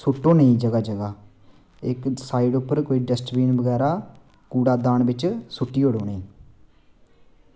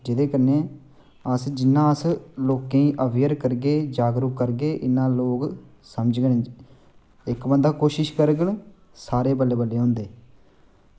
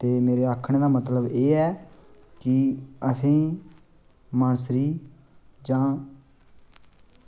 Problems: constant background noise